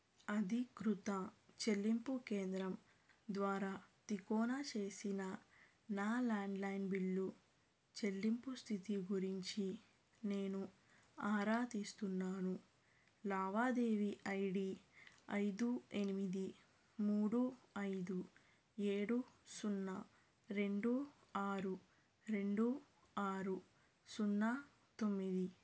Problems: low volume